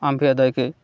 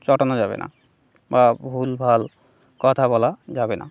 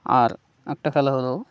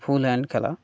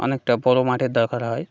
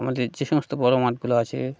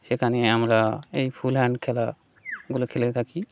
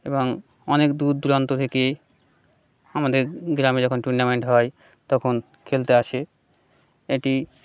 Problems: background sounds at intervals